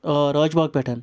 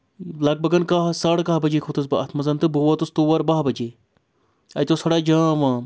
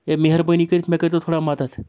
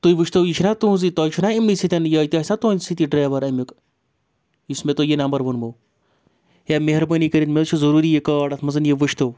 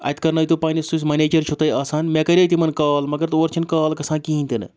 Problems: none marked